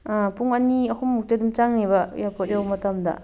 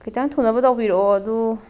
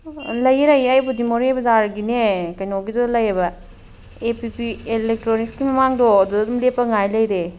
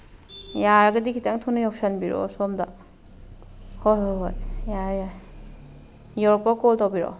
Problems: background sounds at intervals